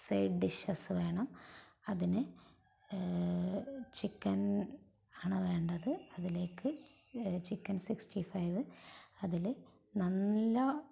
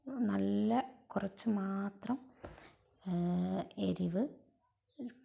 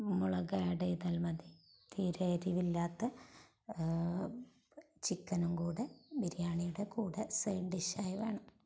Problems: background sounds at intervals, low volume